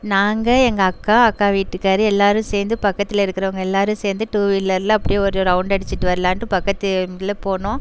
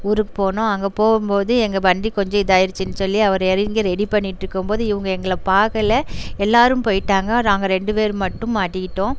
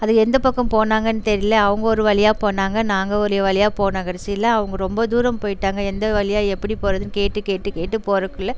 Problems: constant background noise